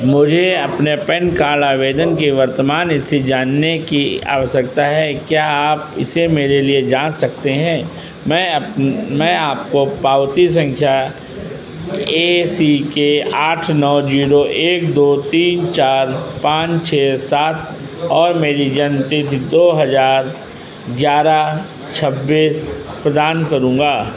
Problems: constant background noise